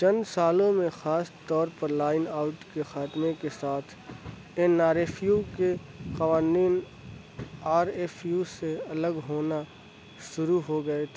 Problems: constant background noise